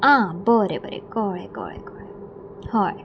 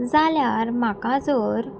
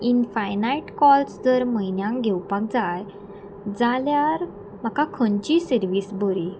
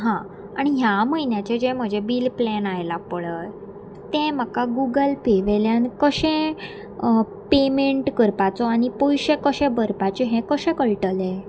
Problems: none marked